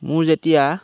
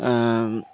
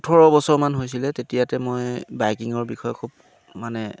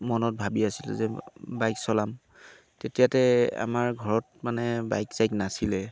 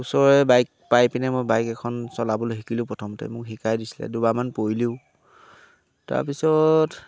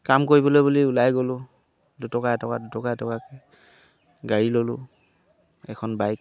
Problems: none marked